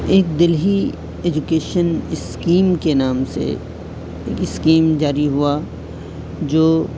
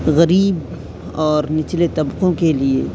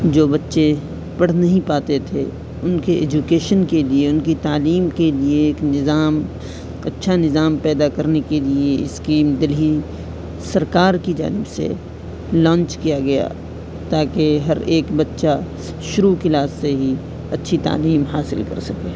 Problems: constant background noise